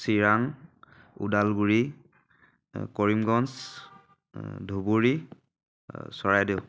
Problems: none marked